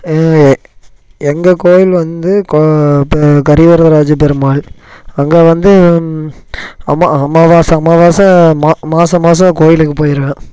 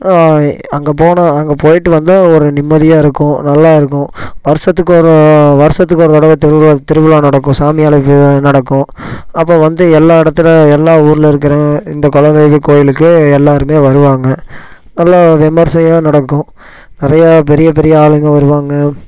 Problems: none marked